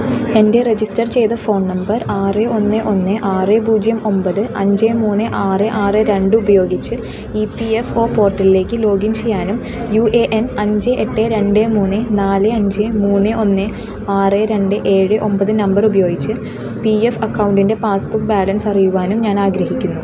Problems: constant background noise